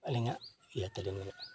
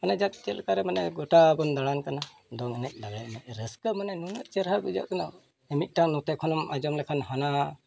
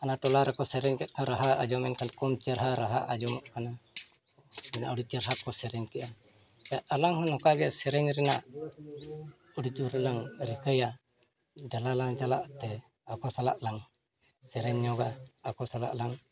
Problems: background sounds at intervals